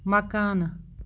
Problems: none marked